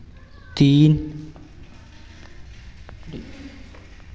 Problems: none marked